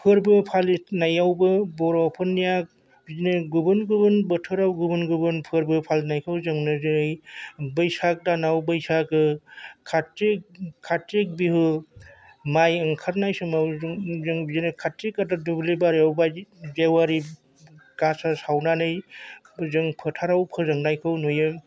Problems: constant background noise